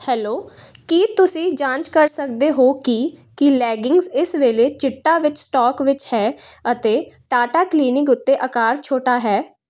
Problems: none marked